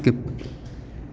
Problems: constant background noise, low volume